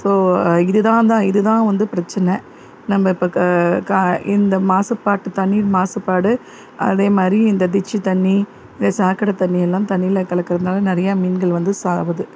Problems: constant background noise